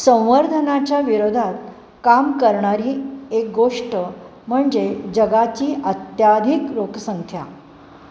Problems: background sounds at intervals